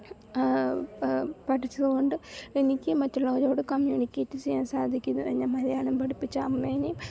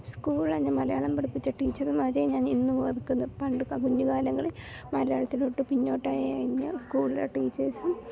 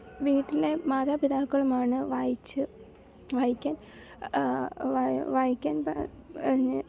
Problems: low volume